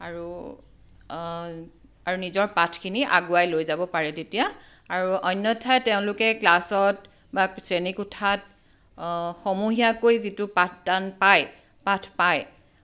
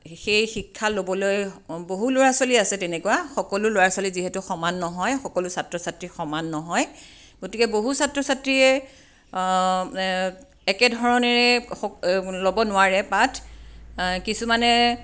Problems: none marked